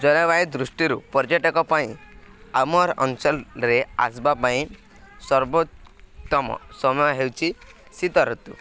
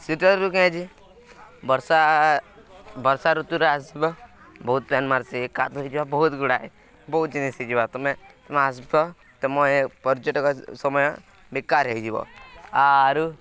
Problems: none marked